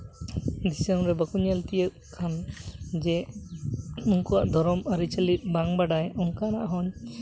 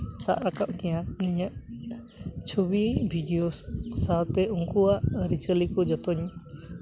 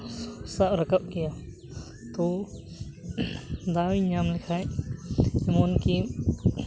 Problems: constant background noise